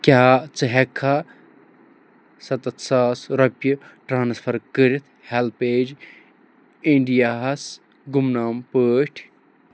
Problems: none marked